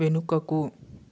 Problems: constant background noise